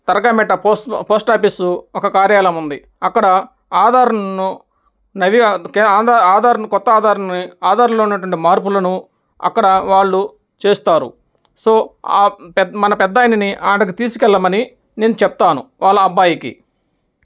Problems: none marked